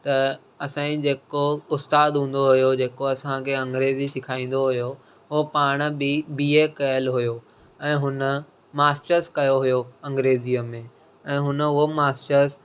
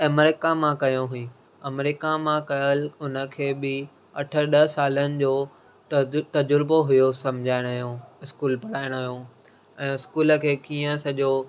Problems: none marked